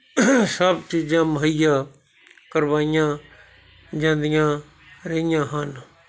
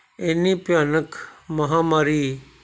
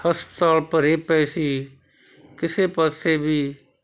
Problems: none marked